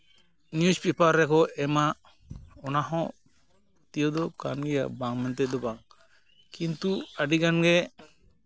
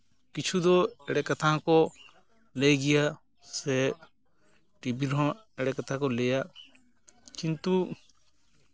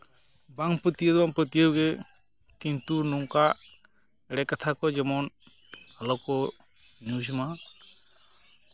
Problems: constant background noise, background conversations at intervals